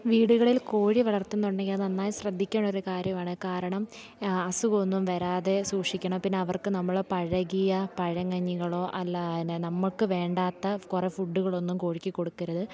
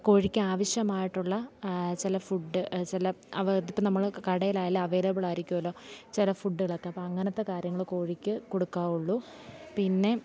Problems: none marked